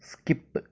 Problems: low volume